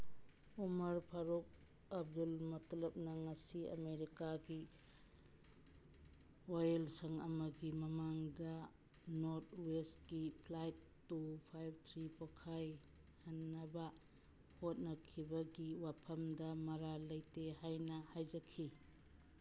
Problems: none marked